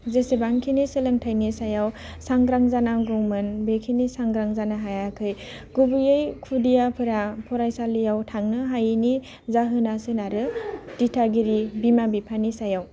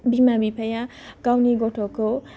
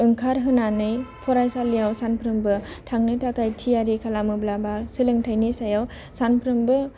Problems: low volume